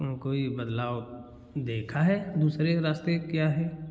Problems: background sounds at intervals